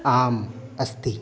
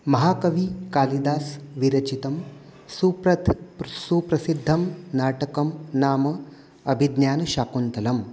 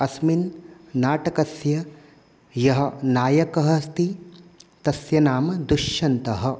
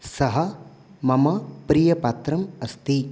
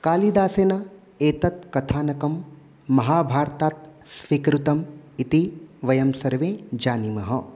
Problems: constant background noise